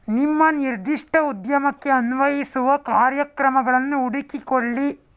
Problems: none marked